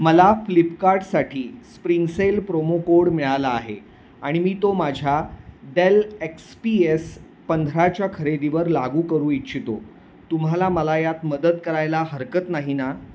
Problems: background sounds at intervals